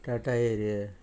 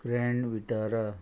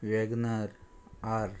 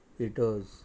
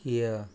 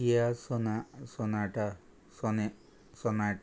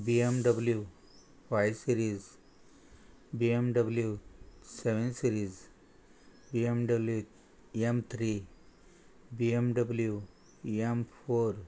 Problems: constant background noise